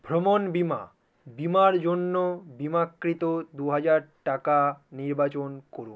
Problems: none marked